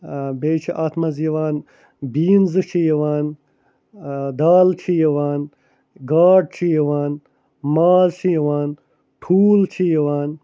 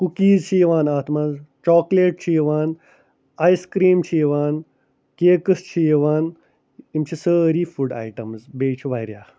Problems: none marked